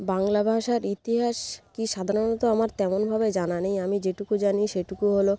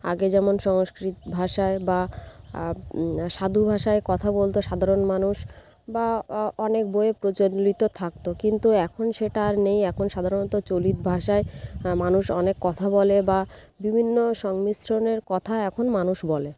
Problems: background sounds at intervals